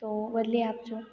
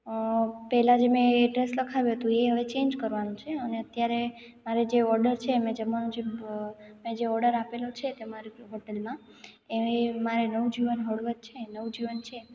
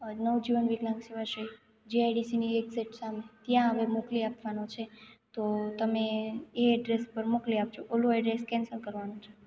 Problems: background sounds at intervals